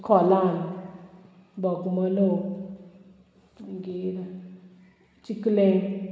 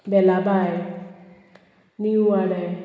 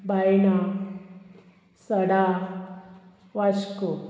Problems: constant background noise